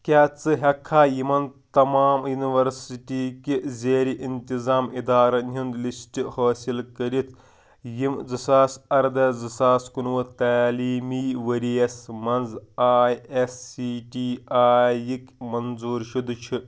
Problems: background sounds at intervals